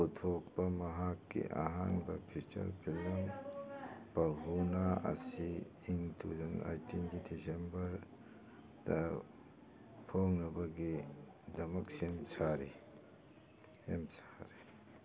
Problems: background sounds at intervals, background conversations at intervals